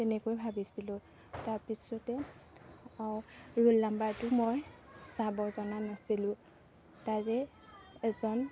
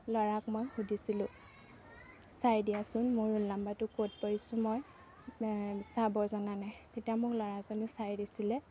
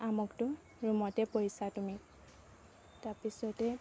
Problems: background sounds at intervals